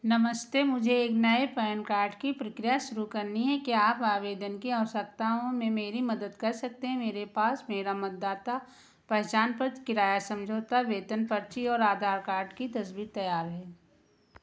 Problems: background sounds at intervals